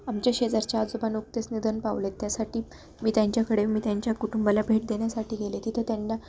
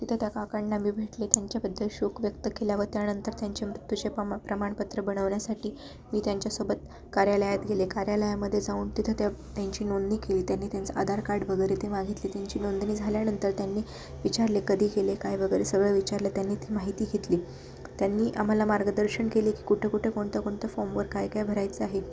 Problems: none marked